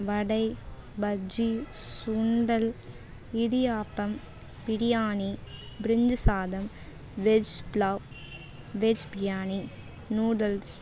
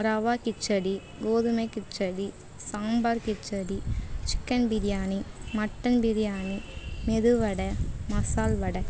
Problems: background sounds at intervals